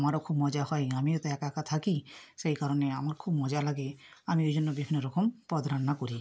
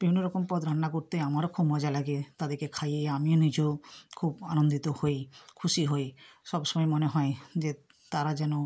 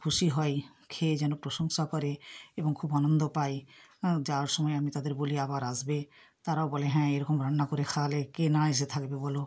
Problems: background sounds at intervals